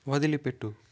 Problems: none marked